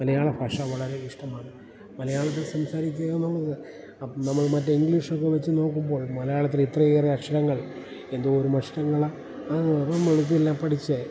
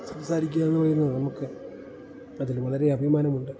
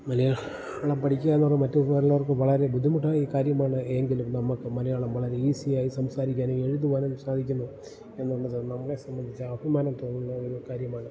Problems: none marked